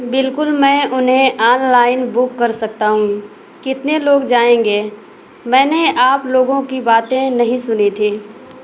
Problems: constant background noise